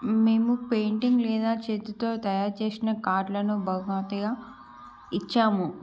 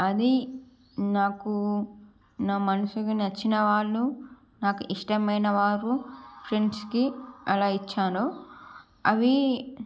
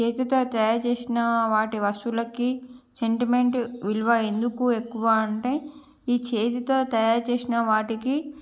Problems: background sounds at intervals